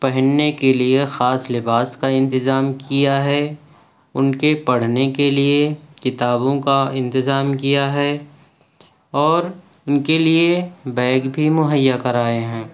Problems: none marked